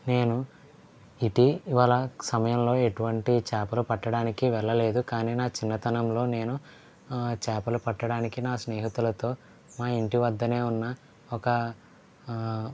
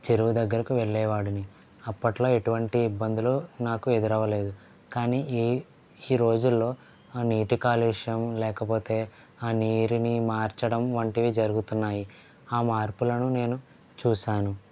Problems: low volume